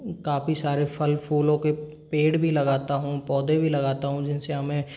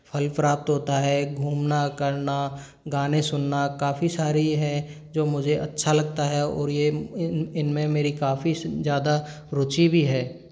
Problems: none marked